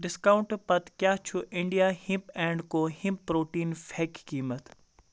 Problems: none marked